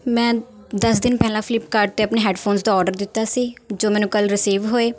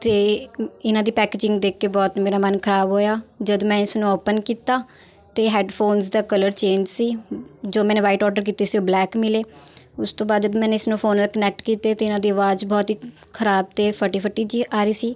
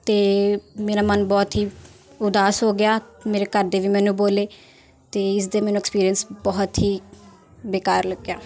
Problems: continuous background conversations